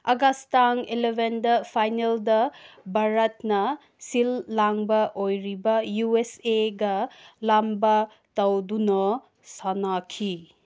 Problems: none marked